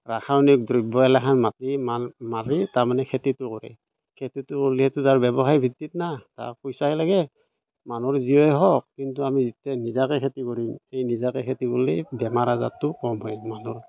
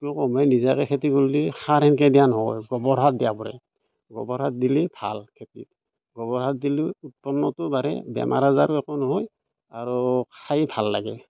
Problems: none marked